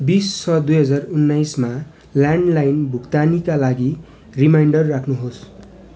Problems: none marked